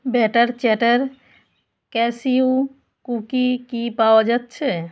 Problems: background sounds at intervals